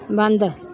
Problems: none marked